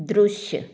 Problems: none marked